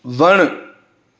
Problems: none marked